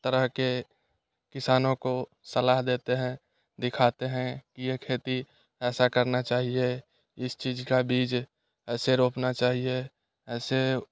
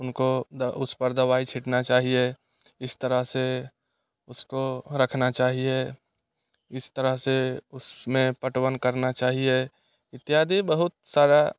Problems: none marked